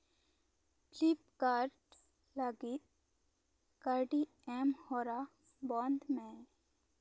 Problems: low volume